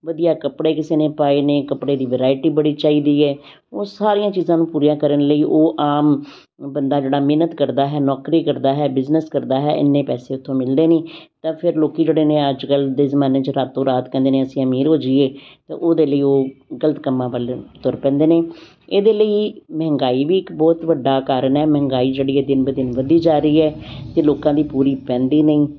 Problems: constant background noise